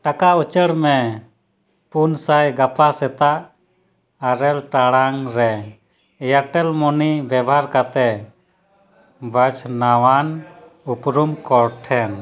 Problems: background conversations at intervals